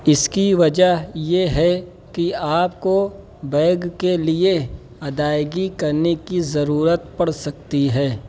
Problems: constant background noise